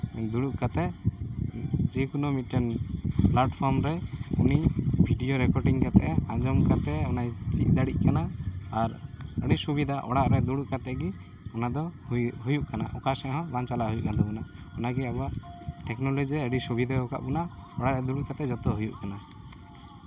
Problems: none marked